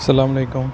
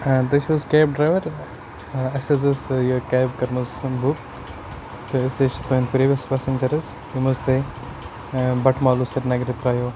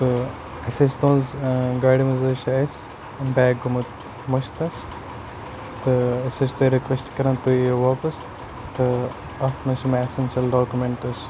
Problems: constant background noise